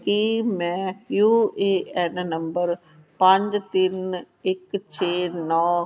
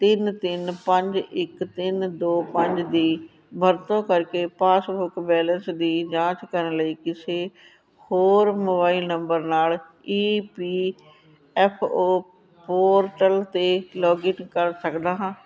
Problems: background sounds at intervals, background conversations at intervals